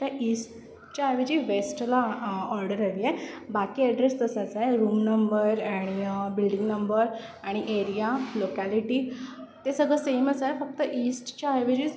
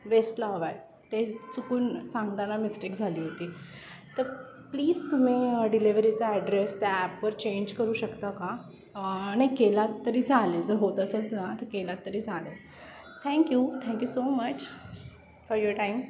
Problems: none marked